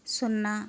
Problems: constant background noise